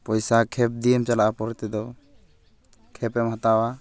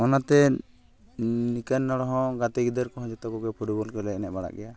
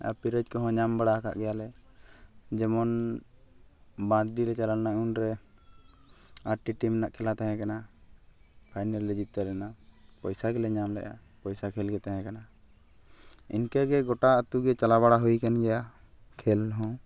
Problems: none marked